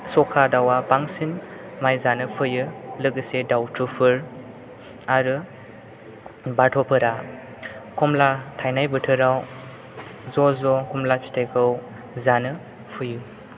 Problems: constant background noise